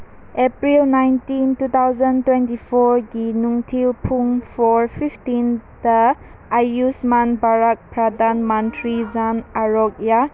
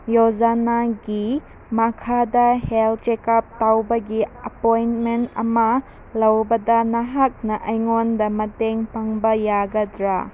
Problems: background sounds at intervals